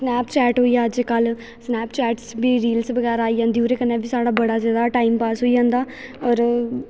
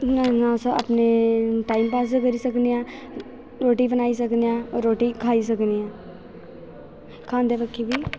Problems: constant background noise